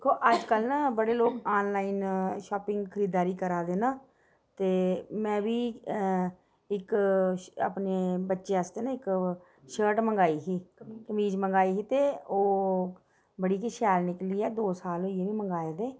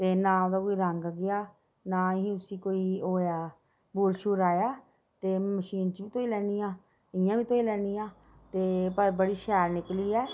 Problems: background sounds at intervals